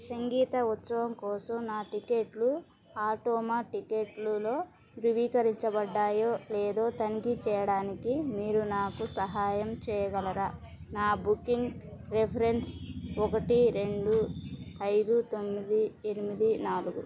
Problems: background sounds at intervals, continuous background conversations